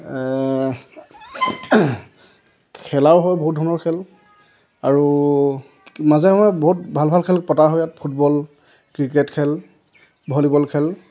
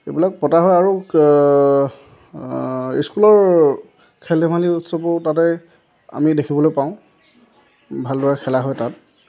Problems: none marked